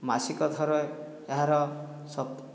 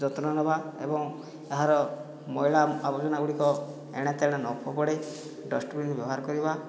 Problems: low volume